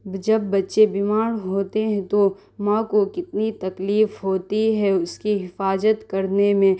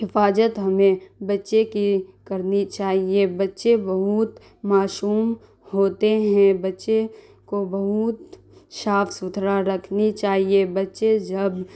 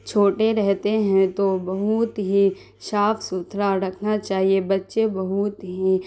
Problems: constant background noise